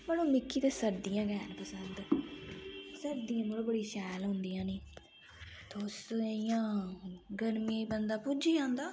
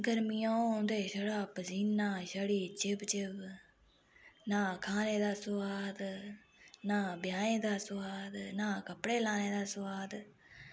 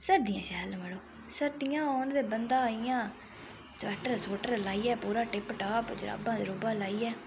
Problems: none marked